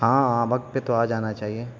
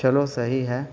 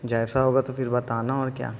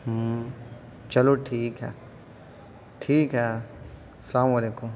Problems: constant background noise